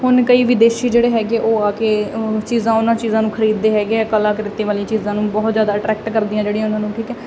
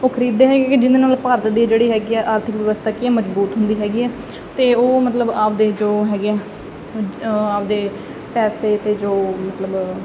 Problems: none marked